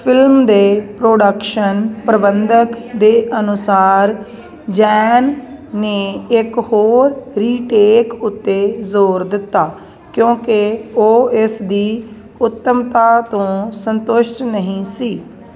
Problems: constant background noise